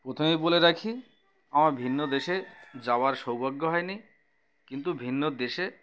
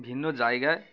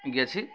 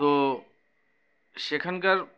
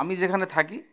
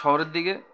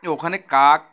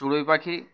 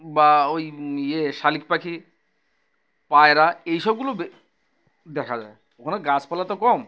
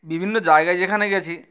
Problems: background sounds at intervals